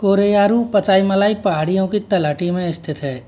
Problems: constant background noise